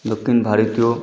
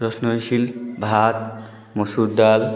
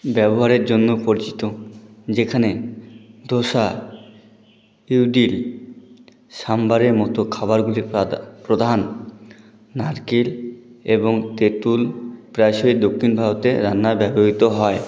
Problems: none marked